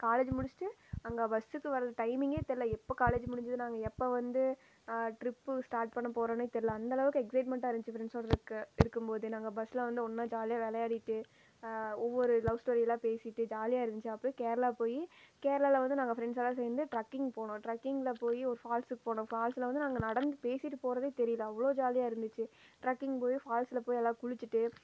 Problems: none marked